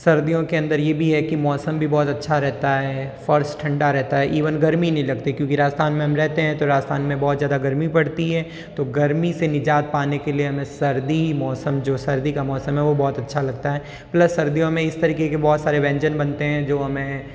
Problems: background sounds at intervals, echo